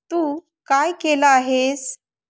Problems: none marked